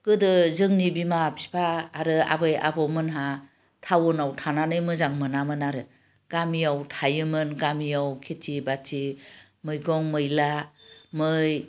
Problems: constant background noise